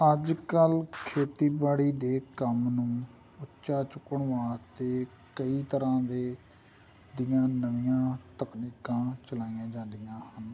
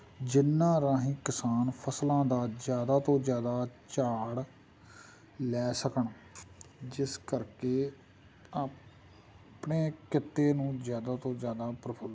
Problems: none marked